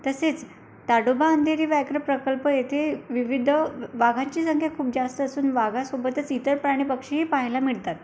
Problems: none marked